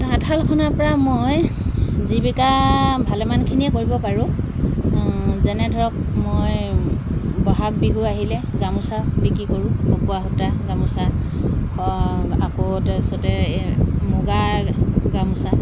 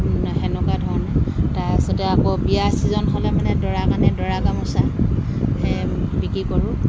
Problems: constant background noise